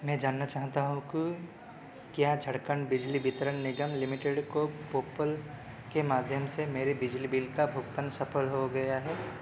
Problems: constant background noise